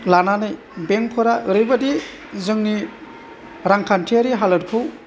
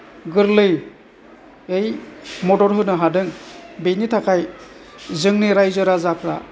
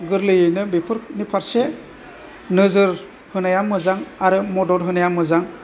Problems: none marked